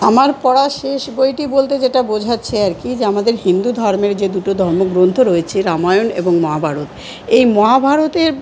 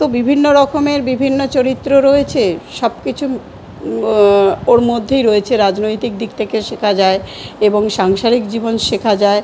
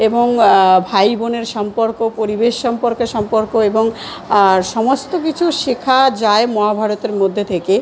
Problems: continuous background conversations